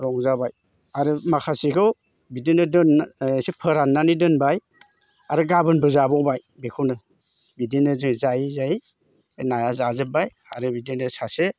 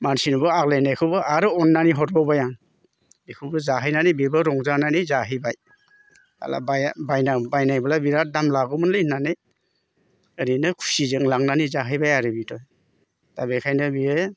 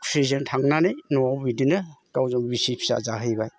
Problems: constant background noise